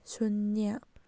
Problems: low volume